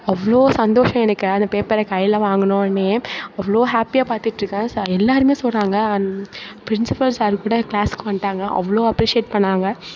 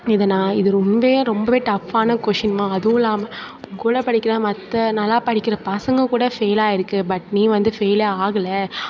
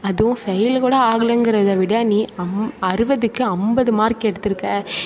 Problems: none marked